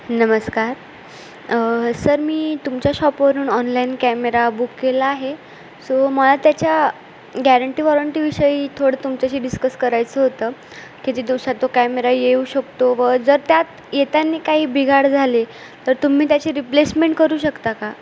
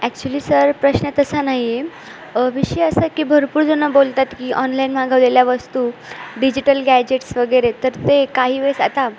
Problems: constant background noise